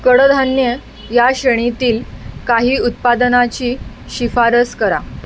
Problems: constant background noise